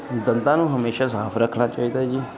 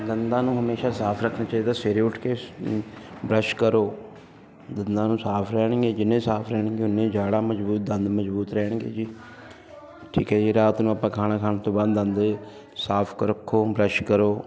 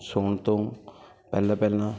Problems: none marked